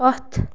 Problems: constant background noise